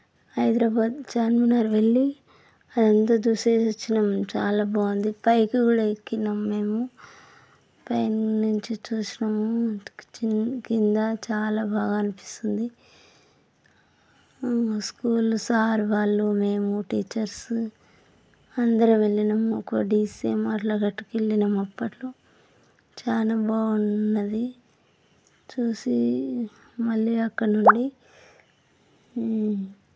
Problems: constant background noise